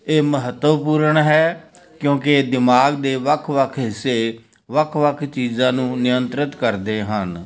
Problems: background conversations at intervals